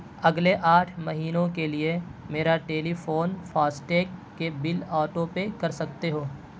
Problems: constant background noise